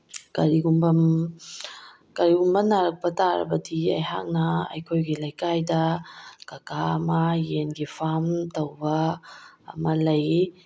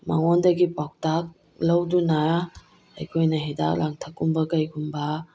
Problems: background sounds at intervals